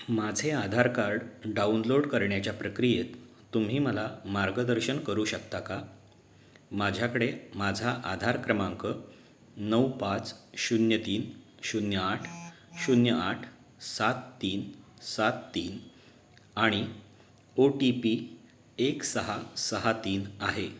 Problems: background sounds at intervals